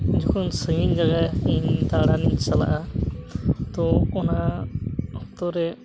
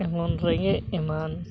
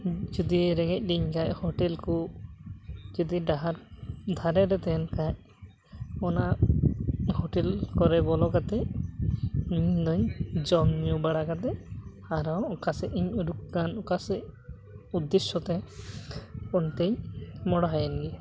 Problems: constant background noise